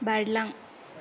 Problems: none marked